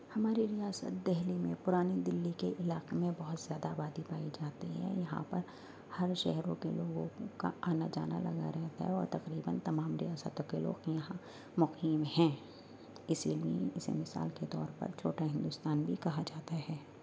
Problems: none marked